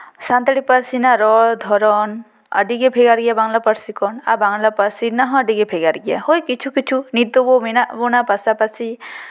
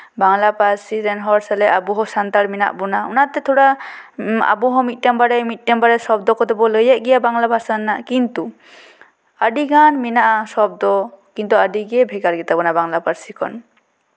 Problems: none marked